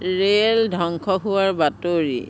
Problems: none marked